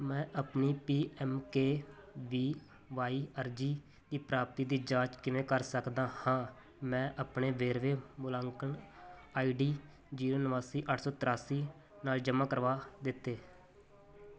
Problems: none marked